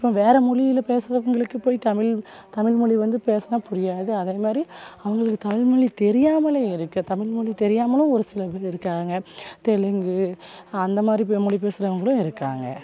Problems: none marked